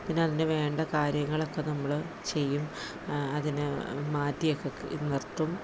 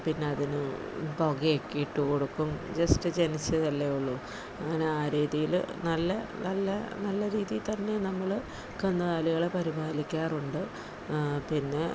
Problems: none marked